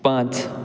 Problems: none marked